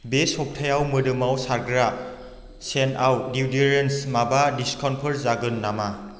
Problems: constant background noise